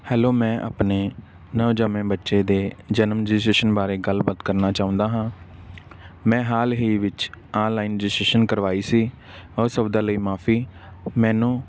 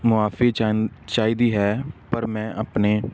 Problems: background sounds at intervals